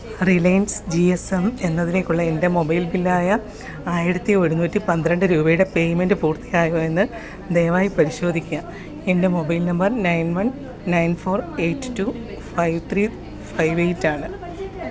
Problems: background sounds at intervals